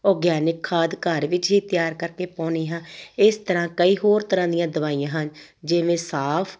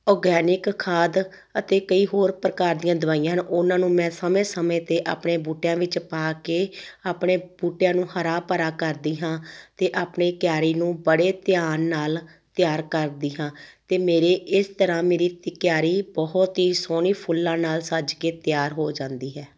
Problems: none marked